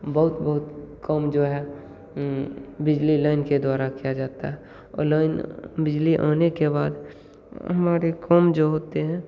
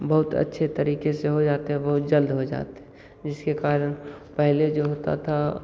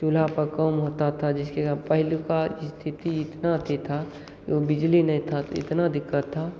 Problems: constant background noise